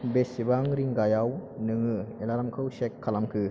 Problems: constant background noise